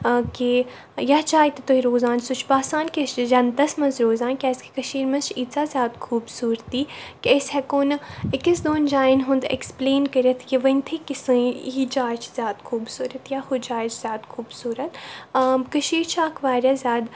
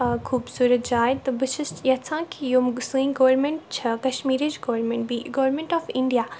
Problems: none marked